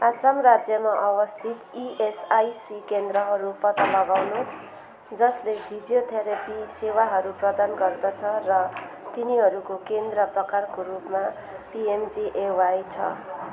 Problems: constant background noise